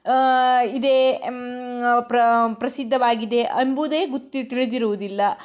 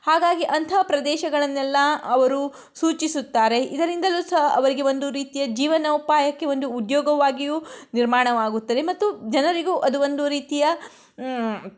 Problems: none marked